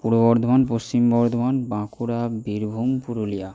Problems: none marked